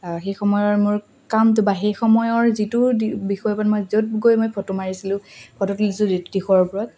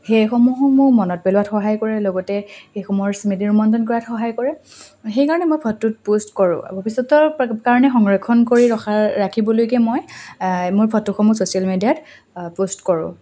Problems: constant background noise